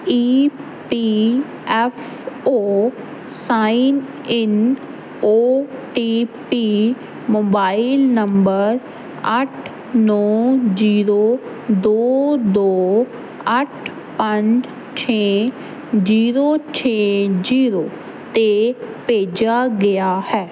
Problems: none marked